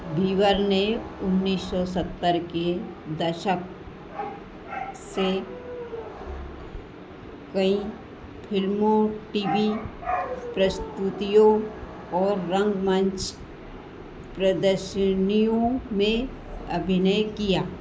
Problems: constant background noise, echo